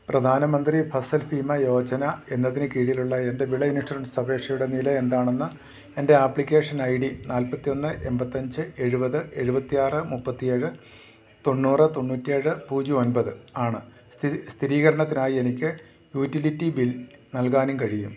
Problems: low volume